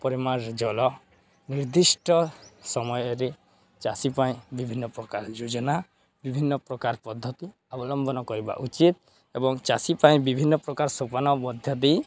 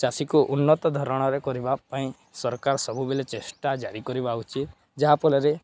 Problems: none marked